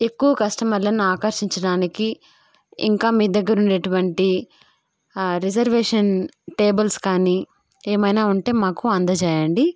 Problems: none marked